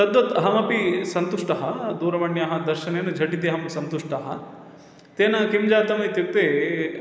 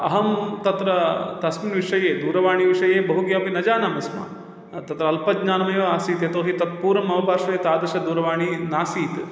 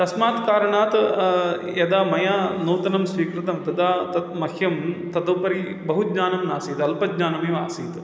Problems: none marked